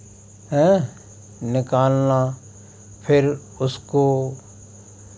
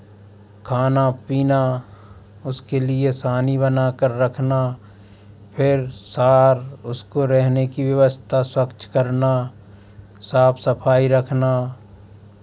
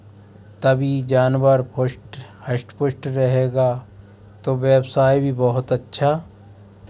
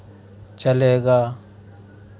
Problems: constant background noise